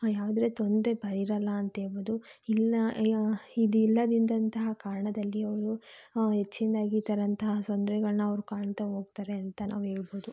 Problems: none marked